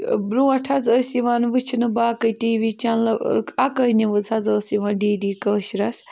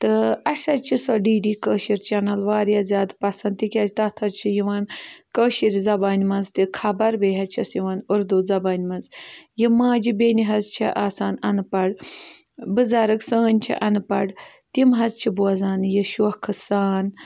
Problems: background sounds at intervals